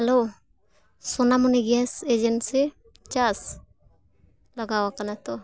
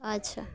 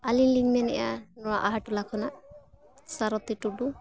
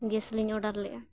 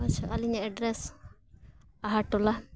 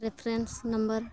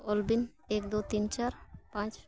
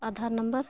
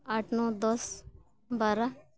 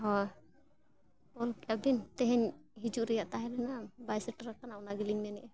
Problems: constant background noise